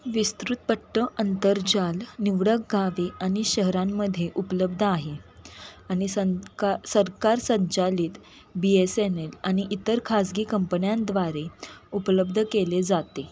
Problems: none marked